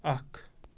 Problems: background sounds at intervals